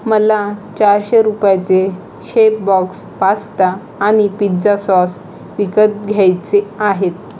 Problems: constant background noise